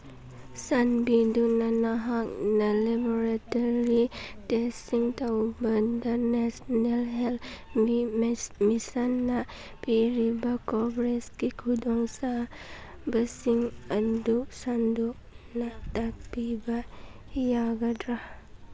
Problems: constant background noise